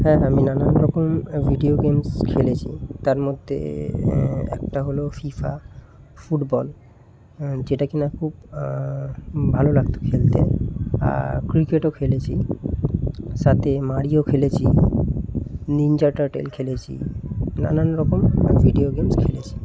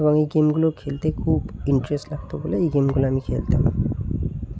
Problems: none marked